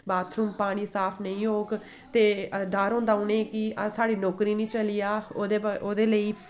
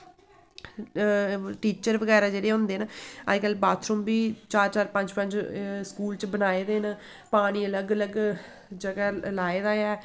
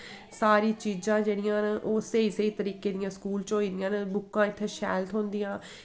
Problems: echo